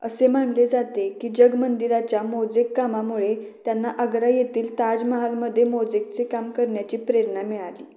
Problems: none marked